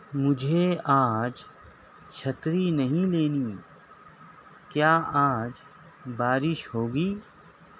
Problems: constant background noise